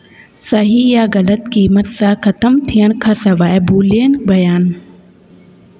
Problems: constant background noise, echo